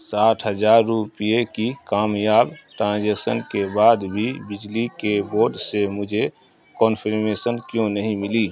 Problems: constant background noise